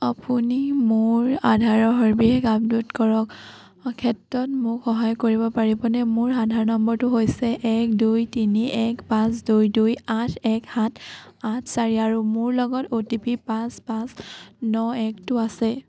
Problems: none marked